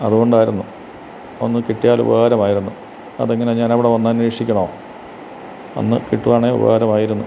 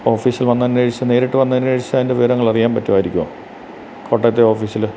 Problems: constant background noise